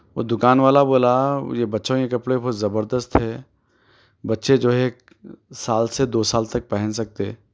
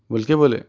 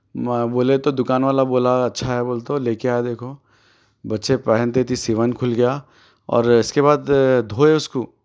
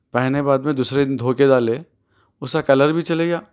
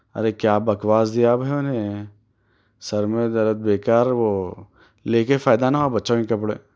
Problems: none marked